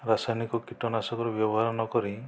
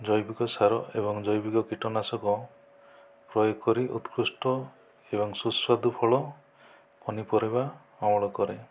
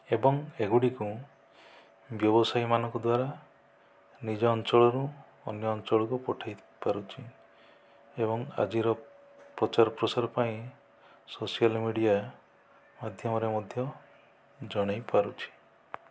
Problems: low volume